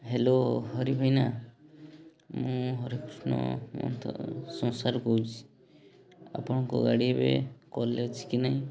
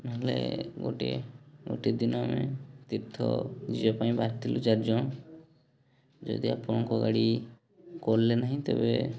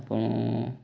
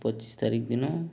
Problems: background sounds at intervals, background conversations at intervals